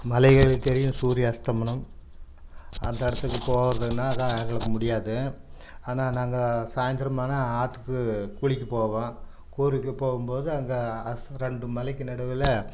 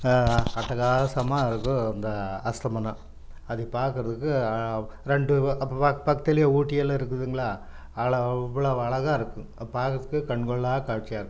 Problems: none marked